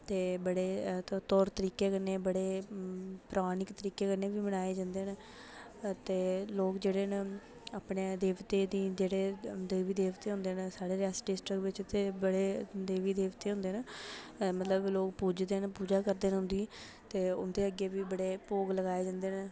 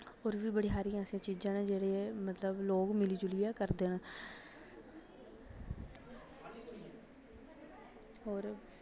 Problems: none marked